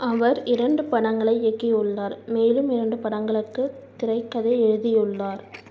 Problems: none marked